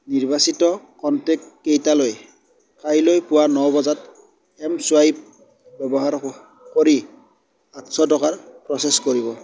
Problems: background sounds at intervals